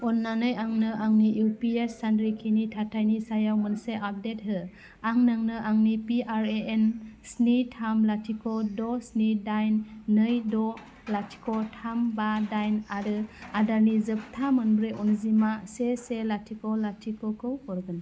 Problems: none marked